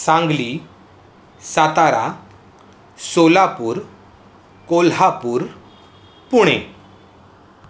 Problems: constant background noise